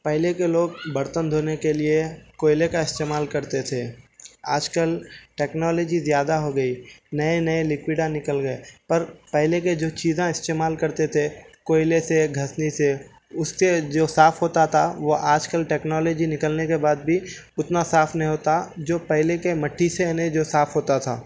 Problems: none marked